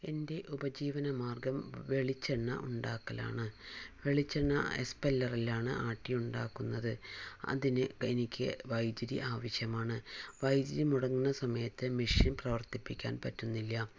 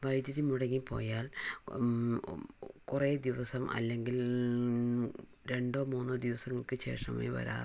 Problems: none marked